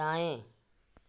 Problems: none marked